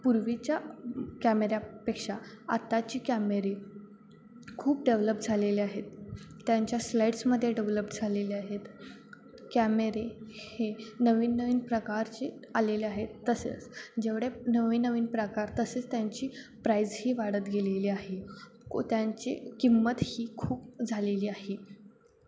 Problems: constant background noise, background conversations at intervals